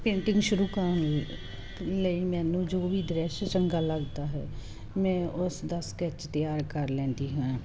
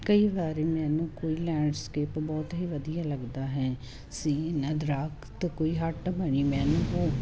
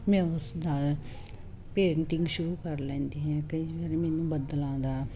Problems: constant background noise